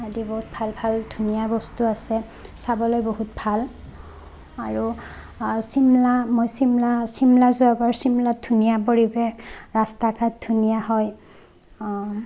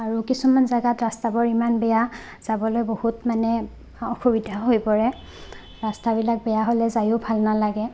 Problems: constant background noise, background conversations at intervals